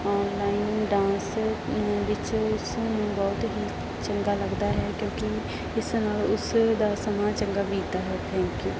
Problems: constant background noise